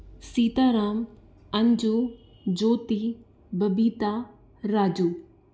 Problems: constant background noise